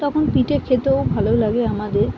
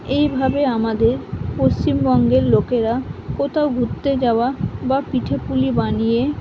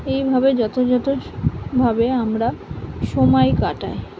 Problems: constant background noise